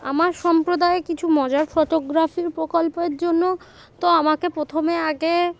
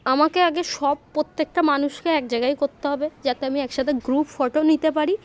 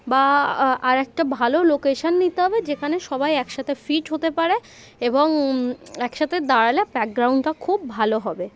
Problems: constant background noise, continuous background conversations